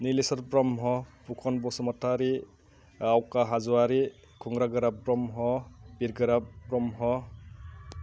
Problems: constant background noise